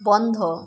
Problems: constant background noise